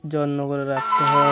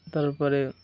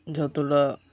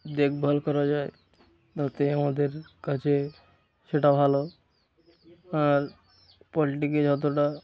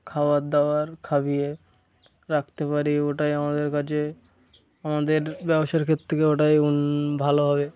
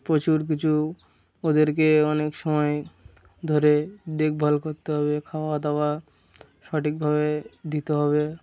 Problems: constant background noise